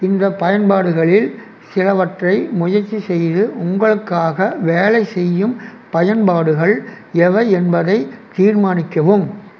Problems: none marked